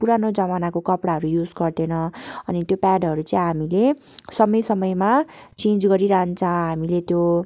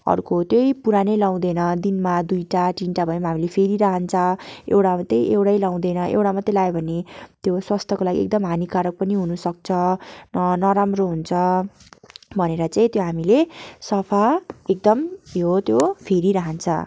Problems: constant background noise